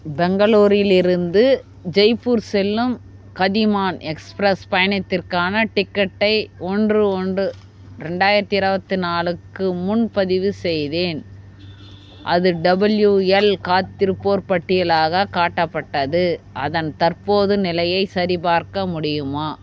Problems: constant background noise